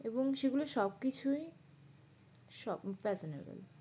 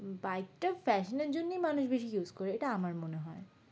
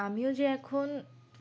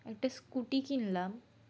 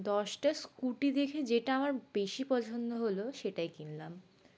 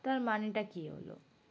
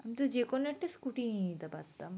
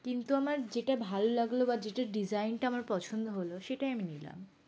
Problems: background sounds at intervals